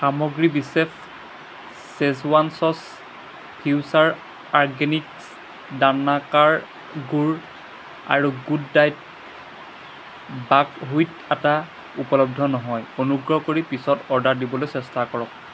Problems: constant background noise